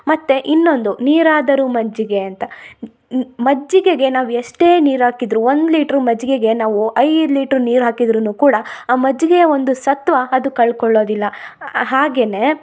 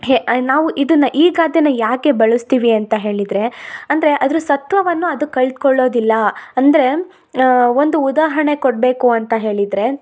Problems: none marked